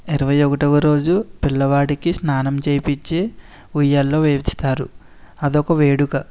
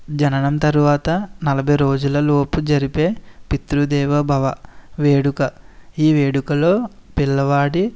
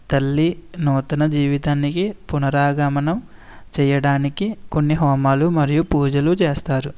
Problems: none marked